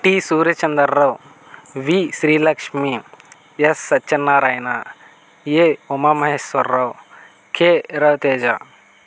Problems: constant background noise